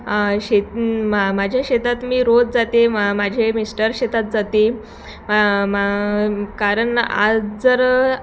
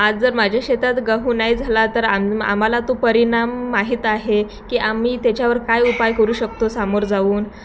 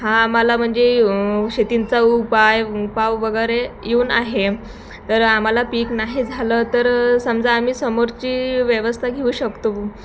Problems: constant background noise, background conversations at intervals, echo